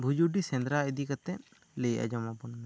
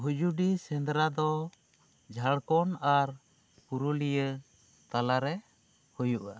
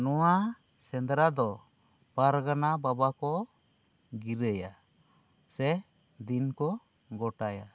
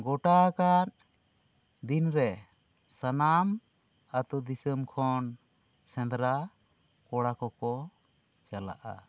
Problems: none marked